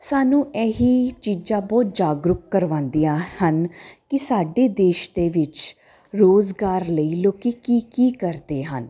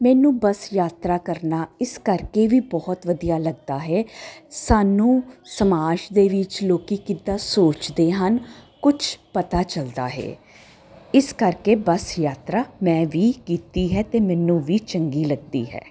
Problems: none marked